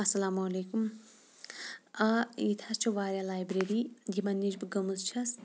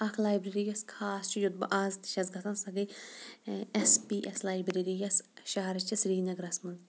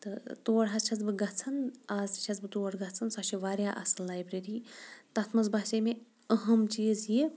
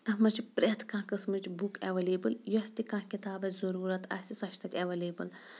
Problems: background sounds at intervals